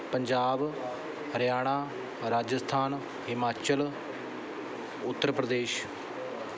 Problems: background sounds at intervals